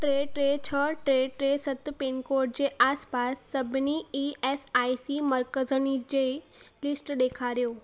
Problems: constant background noise